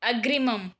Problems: none marked